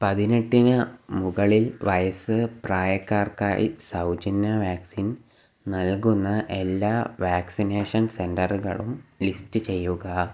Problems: background sounds at intervals